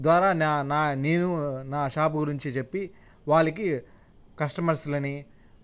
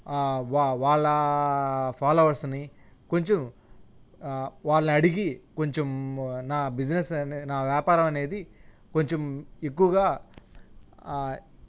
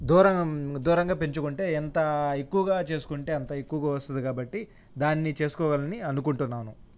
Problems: none marked